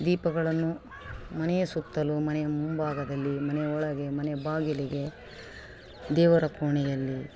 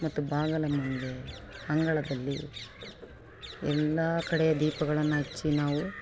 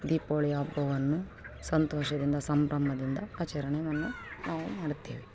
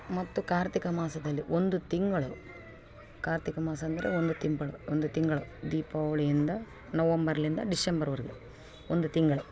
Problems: background sounds at intervals